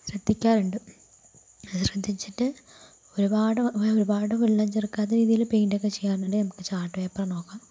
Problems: none marked